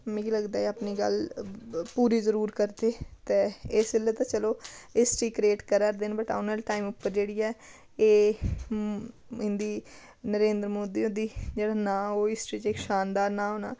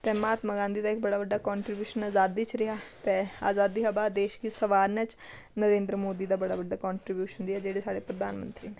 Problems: none marked